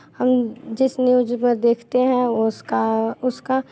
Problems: constant background noise, continuous background conversations